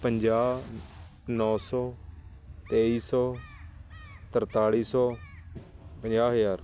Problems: constant background noise